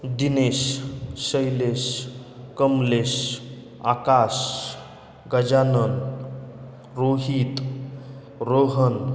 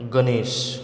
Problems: none marked